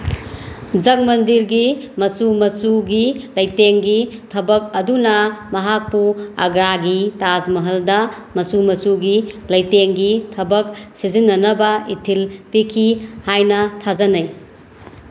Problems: constant background noise